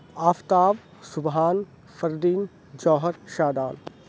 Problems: none marked